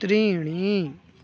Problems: continuous background conversations